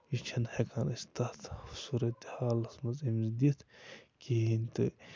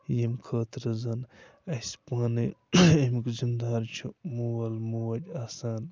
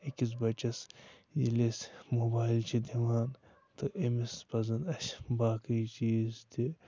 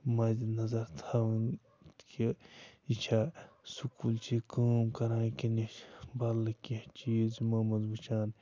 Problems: constant background noise, low volume